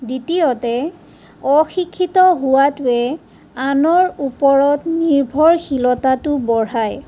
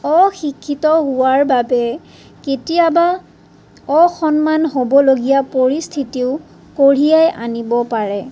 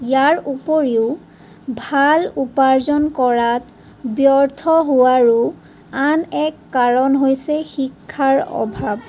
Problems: none marked